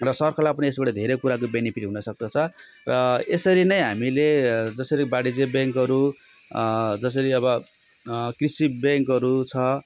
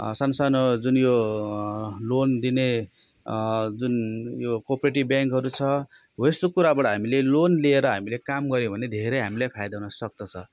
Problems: constant background noise